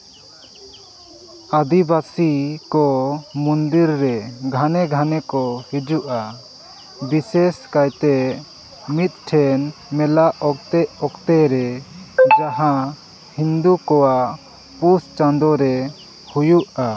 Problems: constant background noise